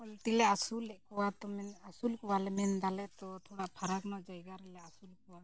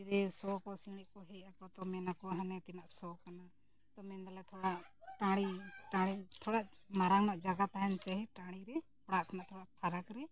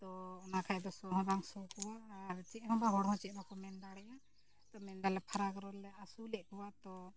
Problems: low volume